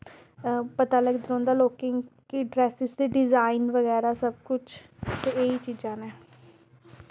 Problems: background sounds at intervals